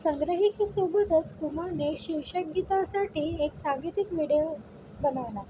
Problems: constant background noise